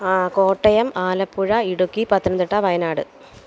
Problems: none marked